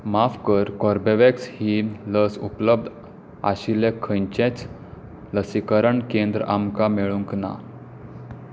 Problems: none marked